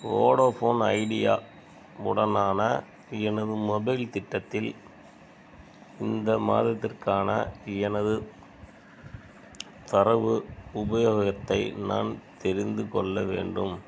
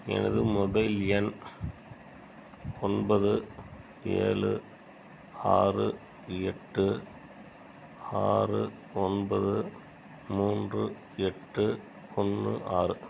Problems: background sounds at intervals